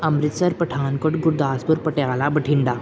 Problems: none marked